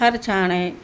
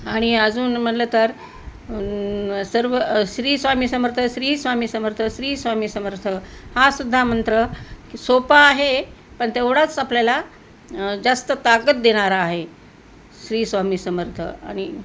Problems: none marked